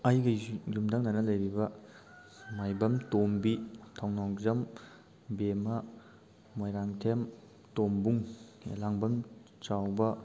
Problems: constant background noise